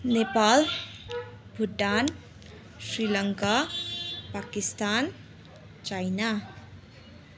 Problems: continuous background conversations